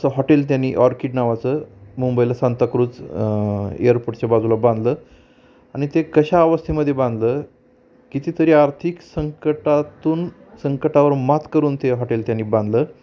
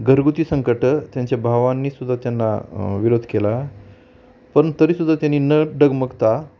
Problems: constant background noise